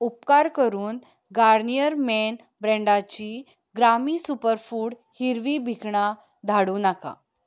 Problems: none marked